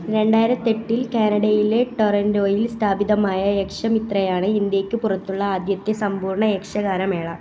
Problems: constant background noise